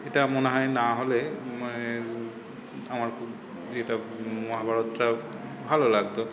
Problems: none marked